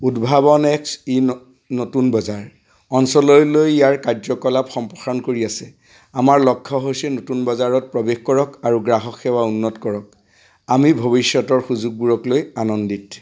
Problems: constant background noise